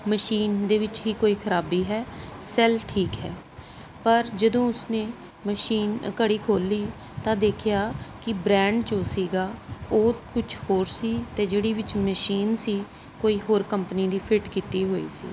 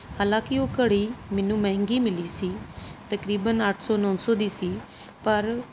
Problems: constant background noise